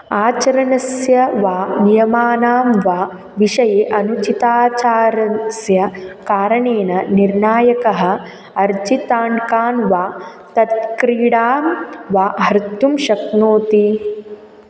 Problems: constant background noise